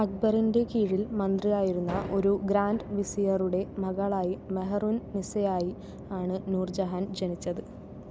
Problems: none marked